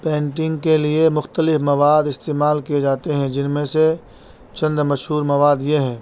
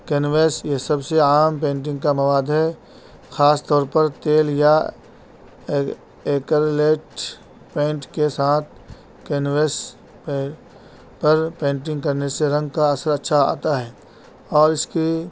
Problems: constant background noise